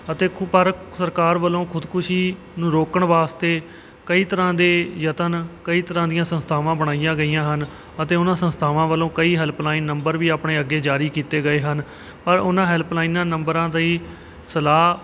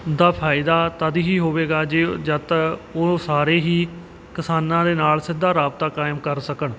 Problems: none marked